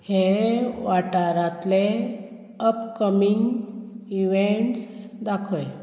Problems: constant background noise